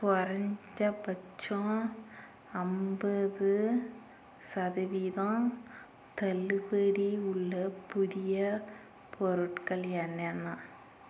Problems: constant background noise